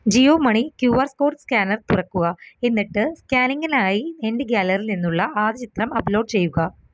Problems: background sounds at intervals